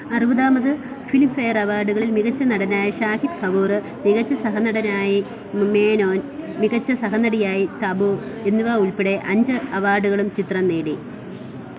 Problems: constant background noise